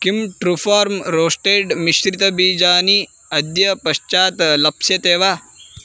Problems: constant background noise